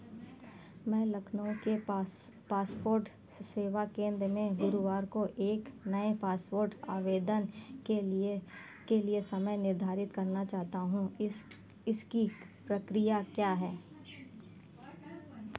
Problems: constant background noise